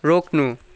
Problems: none marked